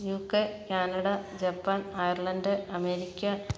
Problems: none marked